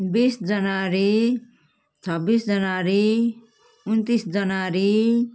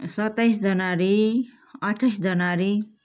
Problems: constant background noise